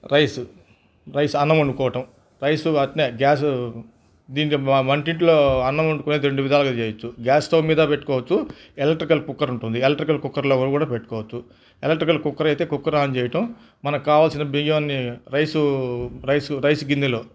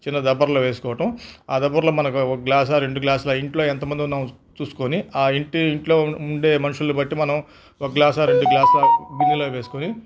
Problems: constant background noise